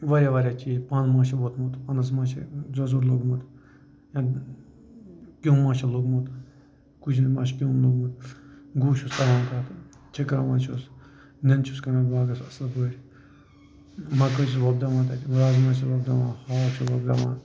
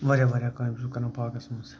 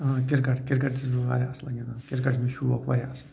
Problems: constant background noise, low volume